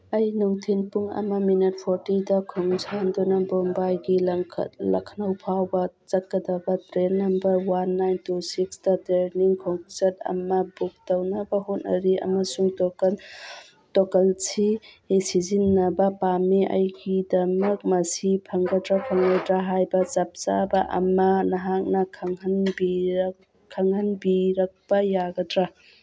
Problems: background conversations at intervals